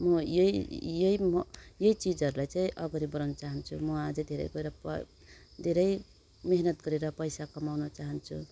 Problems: none marked